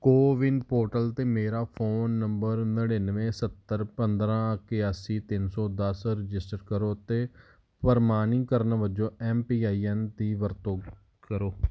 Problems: none marked